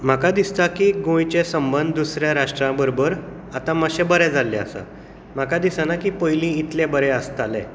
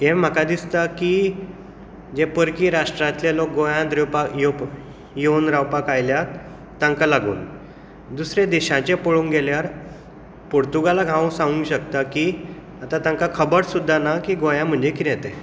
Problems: constant background noise, echo